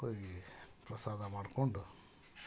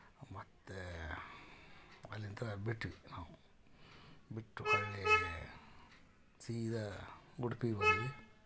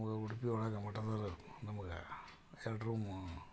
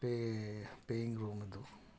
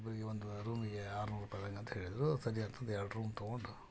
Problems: none marked